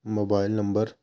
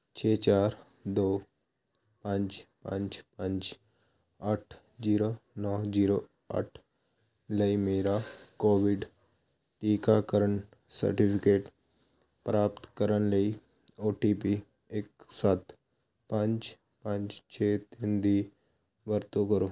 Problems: constant background noise